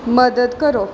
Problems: background sounds at intervals